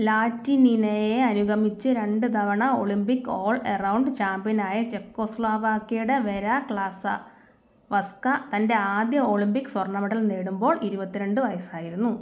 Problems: none marked